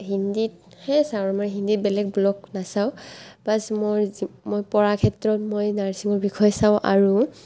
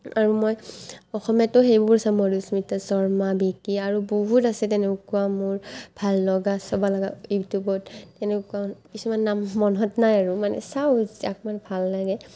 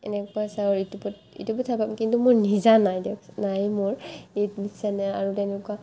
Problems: constant background noise